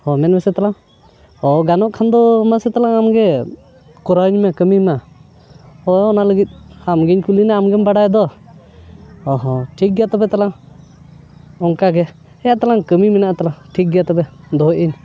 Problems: constant background noise, background conversations at intervals